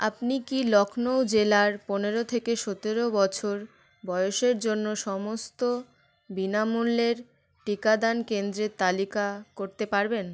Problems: constant background noise